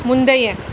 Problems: constant background noise